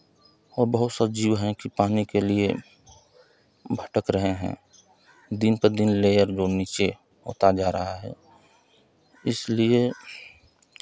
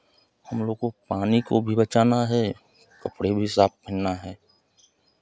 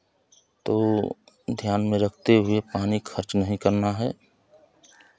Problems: none marked